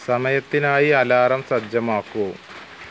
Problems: constant background noise